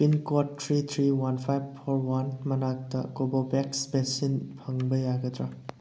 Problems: none marked